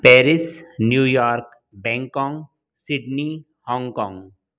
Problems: none marked